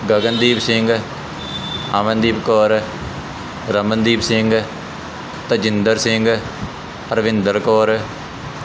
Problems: constant background noise